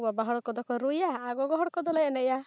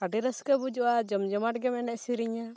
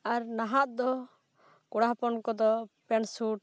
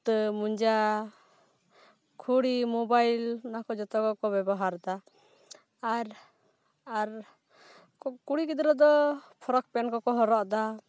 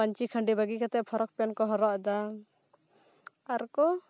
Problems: background sounds at intervals